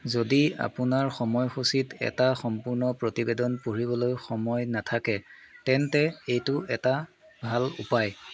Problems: constant background noise, background conversations at intervals